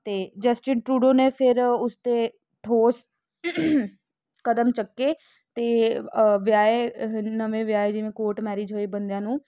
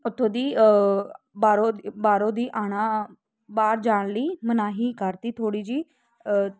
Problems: constant background noise